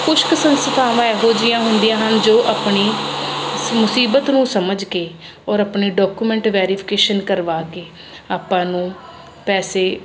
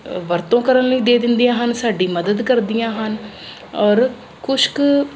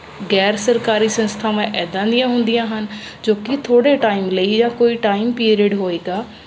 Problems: none marked